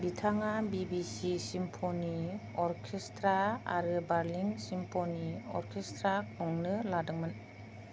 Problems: low volume